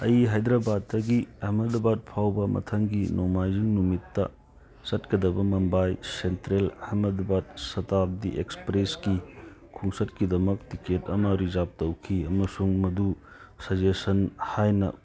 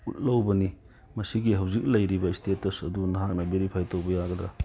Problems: background sounds at intervals